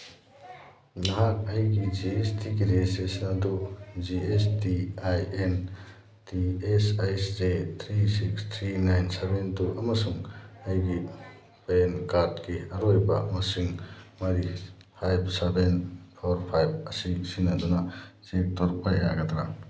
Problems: background sounds at intervals